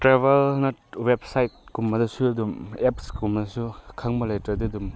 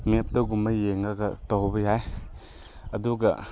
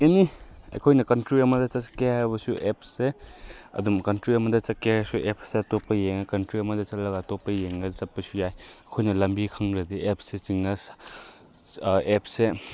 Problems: none marked